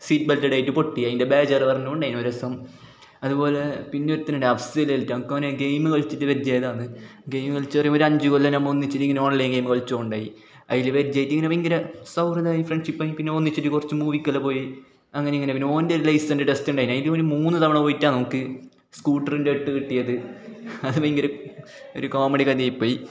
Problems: background sounds at intervals